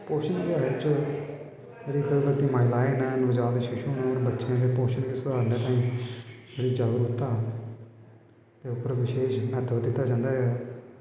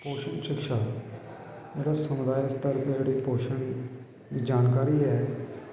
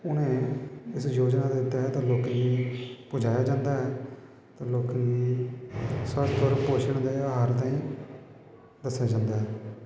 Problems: constant background noise